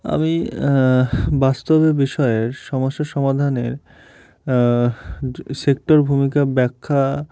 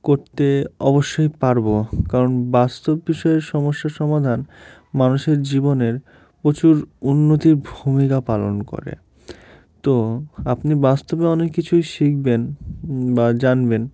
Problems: background sounds at intervals